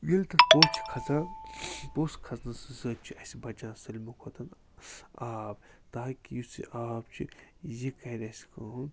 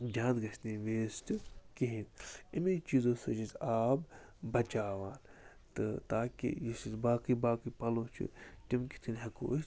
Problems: constant background noise